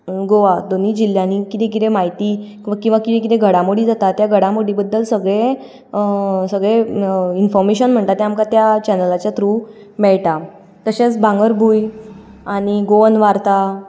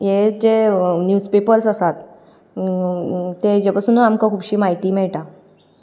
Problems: background sounds at intervals